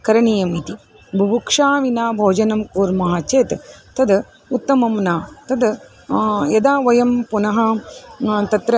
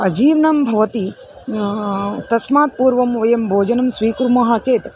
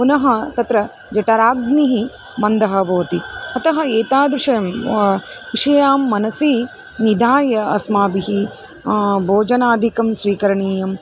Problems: constant background noise, background conversations at intervals